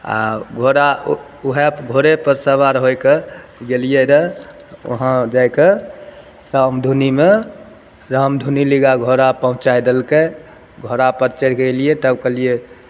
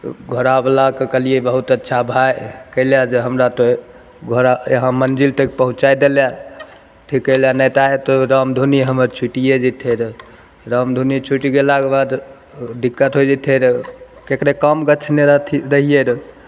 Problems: none marked